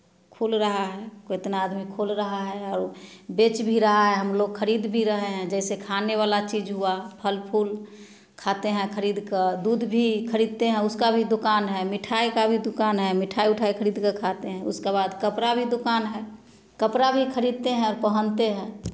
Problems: none marked